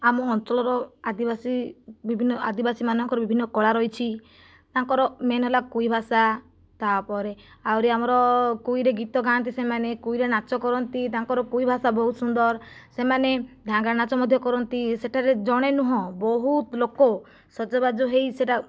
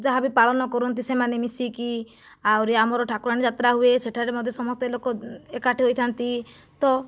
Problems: none marked